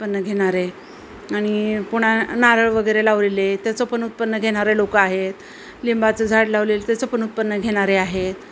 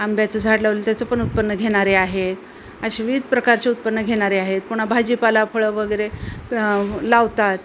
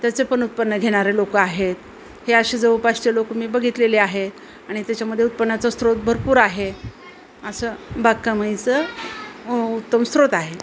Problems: none marked